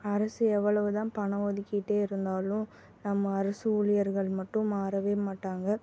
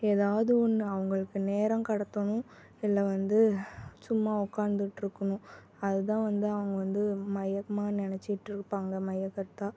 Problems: none marked